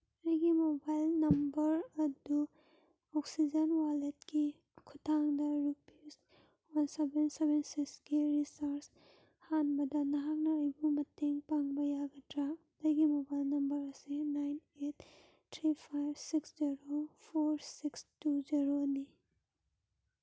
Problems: none marked